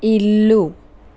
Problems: none marked